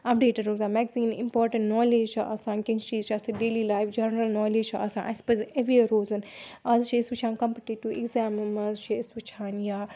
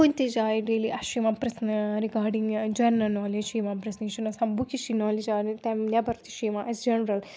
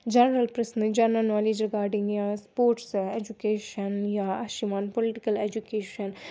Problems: none marked